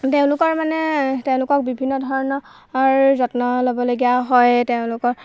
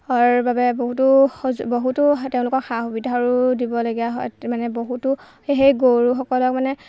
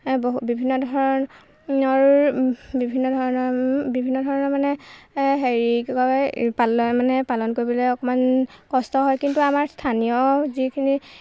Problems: none marked